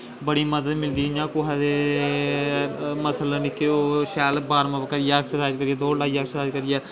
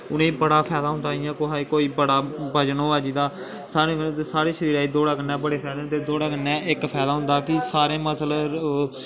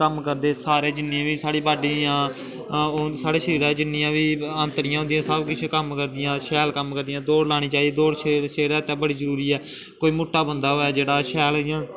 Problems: background sounds at intervals, echo